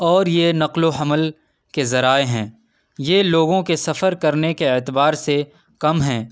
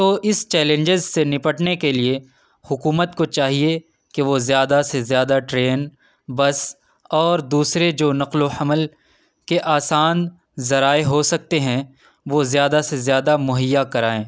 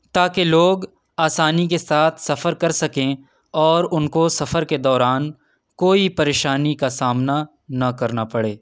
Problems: none marked